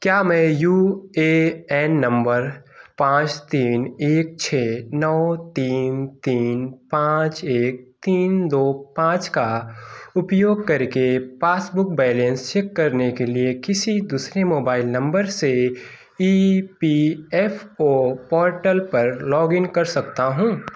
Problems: none marked